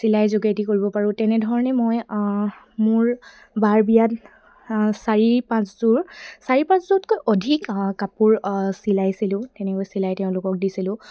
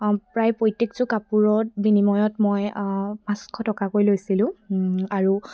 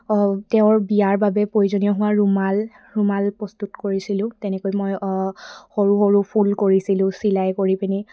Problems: none marked